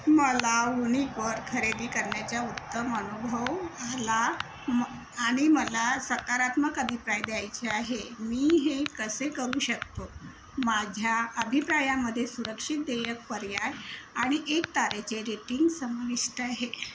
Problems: constant background noise